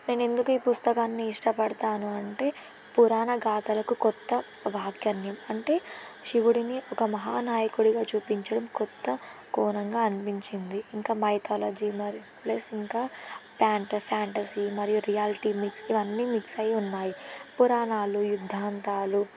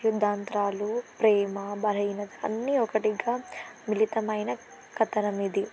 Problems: constant background noise